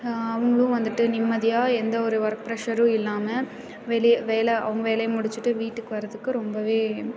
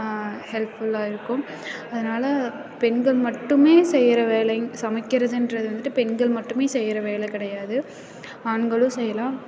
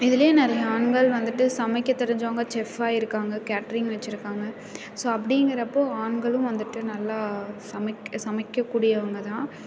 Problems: constant background noise, continuous background conversations